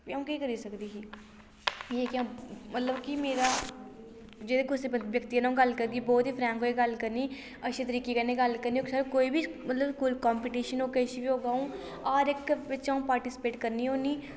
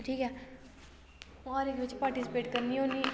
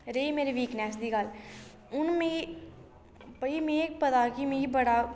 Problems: low volume